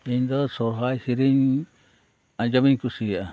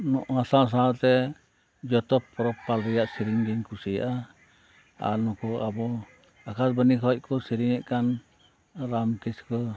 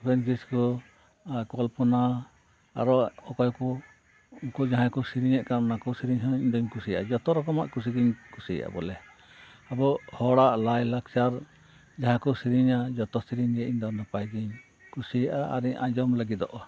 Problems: constant background noise, background conversations at intervals